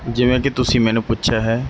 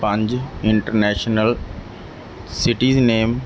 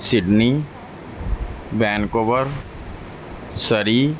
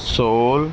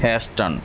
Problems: background sounds at intervals, background conversations at intervals